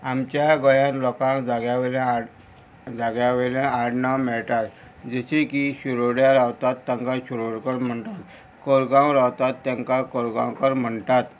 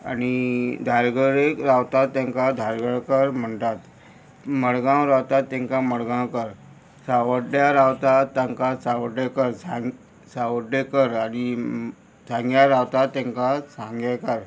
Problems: constant background noise